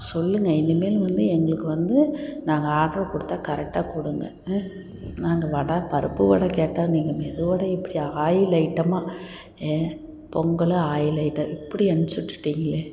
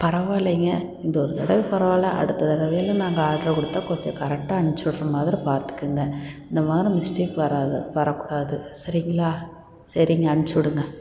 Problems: background sounds at intervals